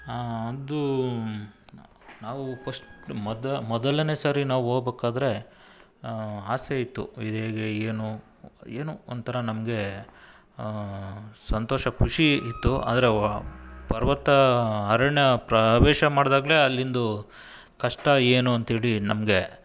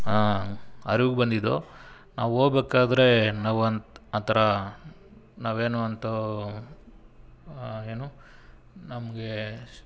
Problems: none marked